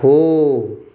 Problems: background sounds at intervals